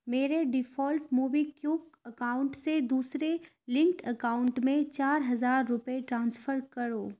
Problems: none marked